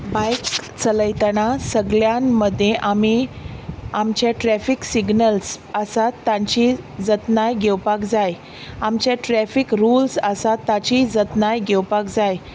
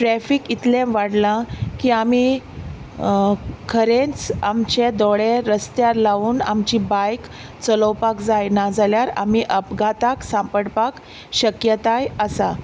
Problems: none marked